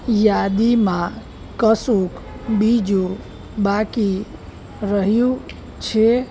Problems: none marked